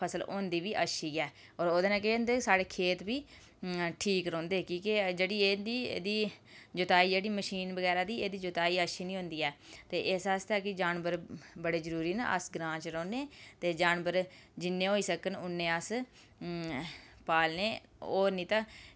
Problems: background sounds at intervals